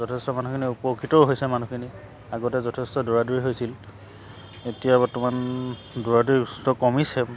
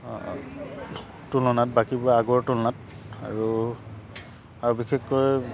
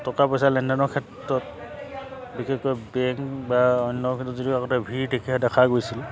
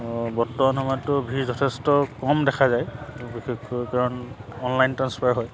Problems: background sounds at intervals